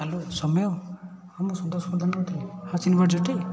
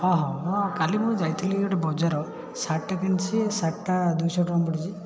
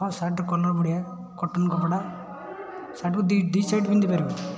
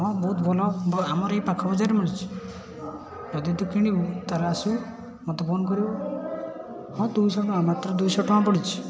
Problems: constant background noise, continuous background conversations